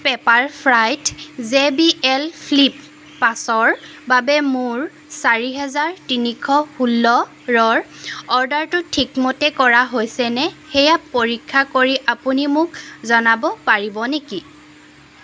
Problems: none marked